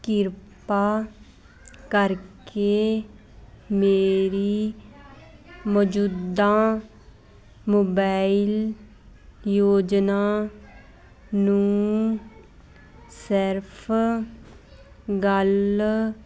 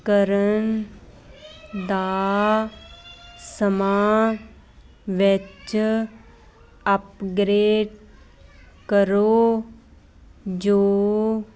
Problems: constant background noise